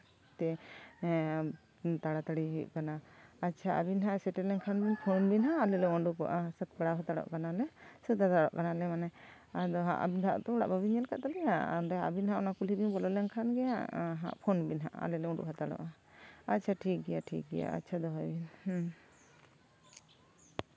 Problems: background conversations at intervals